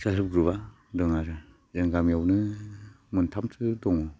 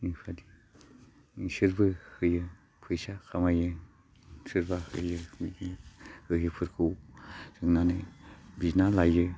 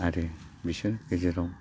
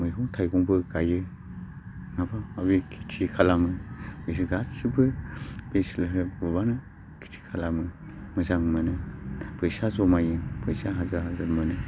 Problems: low volume